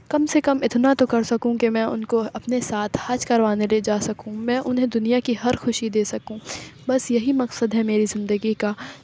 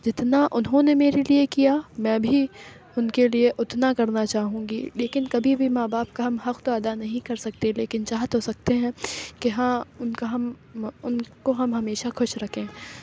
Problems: none marked